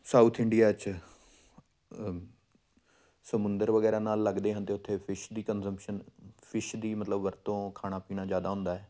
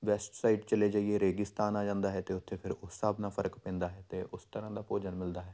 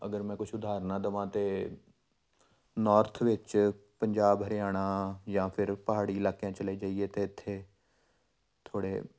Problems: none marked